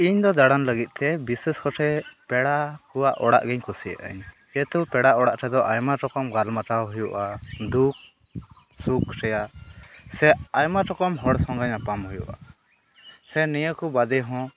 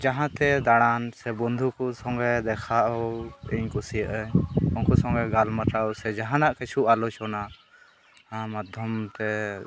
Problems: none marked